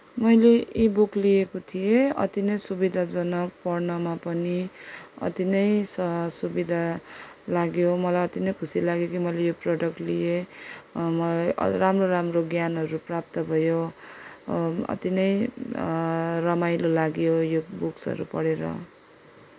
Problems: background sounds at intervals